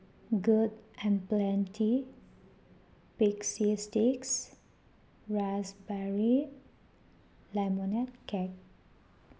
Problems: none marked